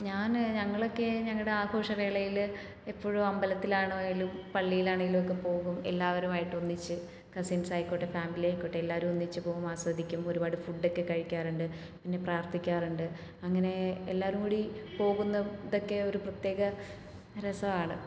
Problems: none marked